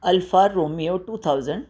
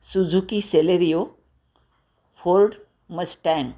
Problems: constant background noise